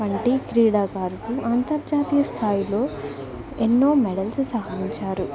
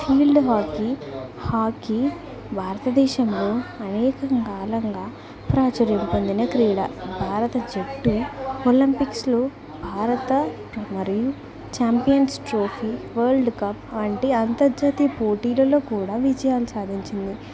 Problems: none marked